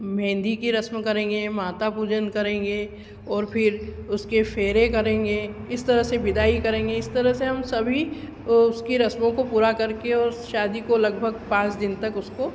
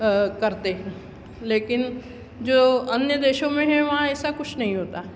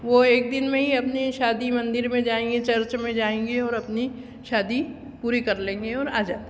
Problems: constant background noise